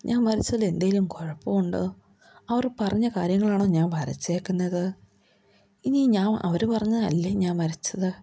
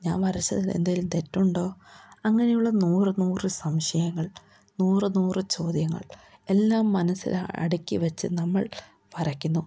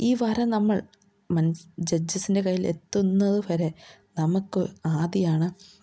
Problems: none marked